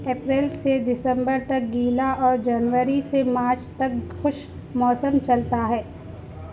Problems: none marked